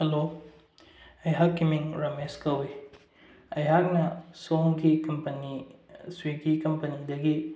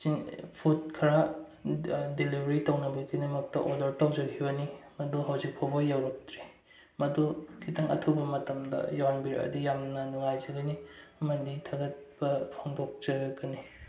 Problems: low volume